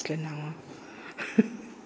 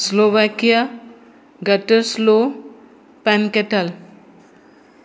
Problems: background sounds at intervals